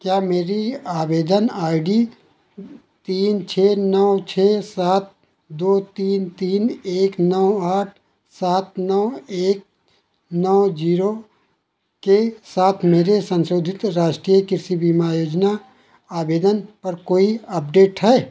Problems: none marked